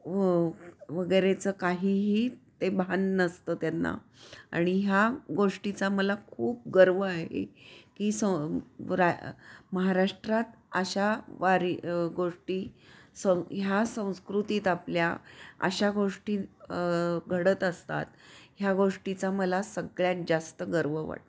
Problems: none marked